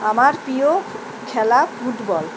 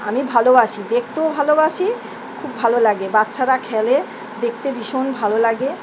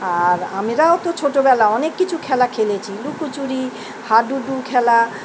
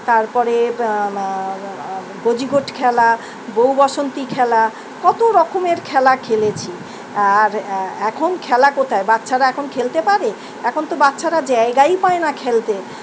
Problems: none marked